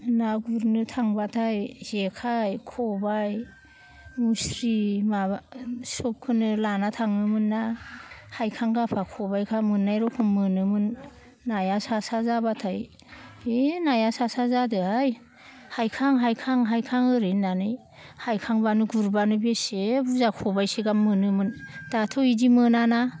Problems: none marked